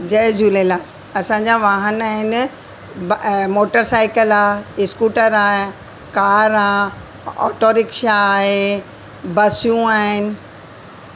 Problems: constant background noise, echo